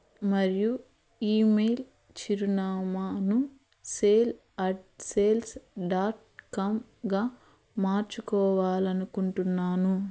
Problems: constant background noise